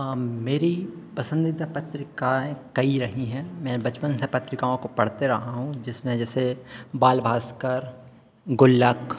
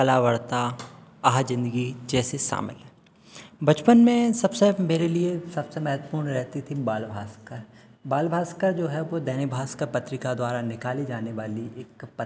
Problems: constant background noise, continuous background conversations